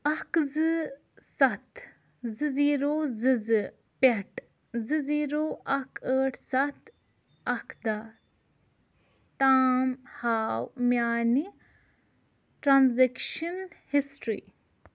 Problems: none marked